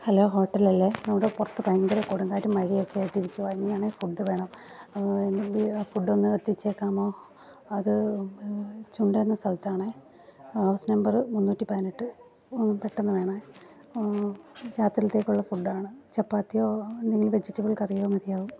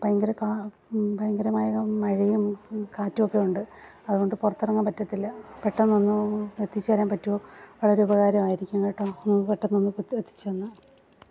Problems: low volume